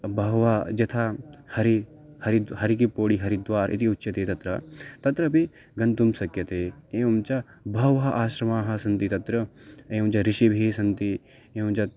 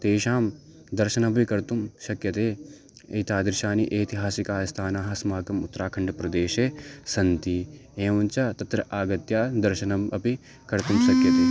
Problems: background sounds at intervals